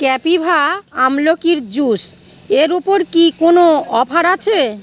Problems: background conversations at intervals